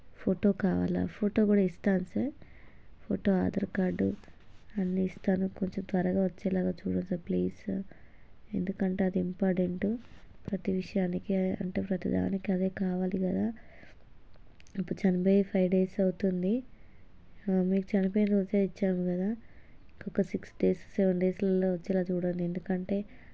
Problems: low volume